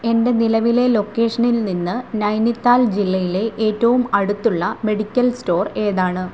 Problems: constant background noise, low volume